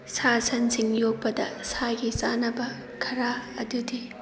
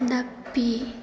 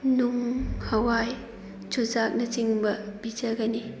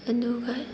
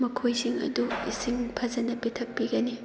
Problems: background conversations at intervals